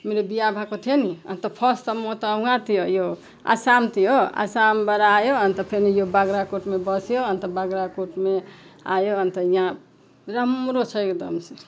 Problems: background sounds at intervals